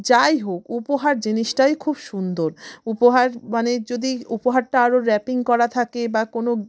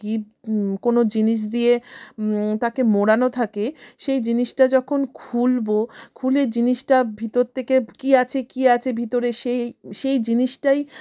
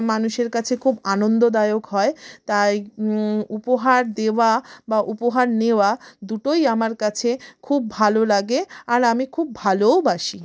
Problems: background sounds at intervals